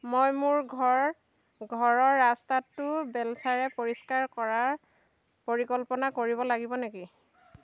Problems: none marked